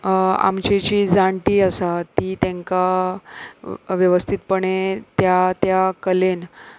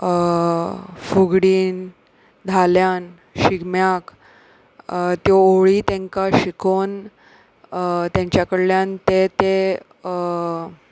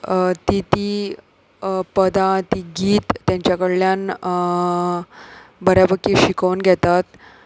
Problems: background sounds at intervals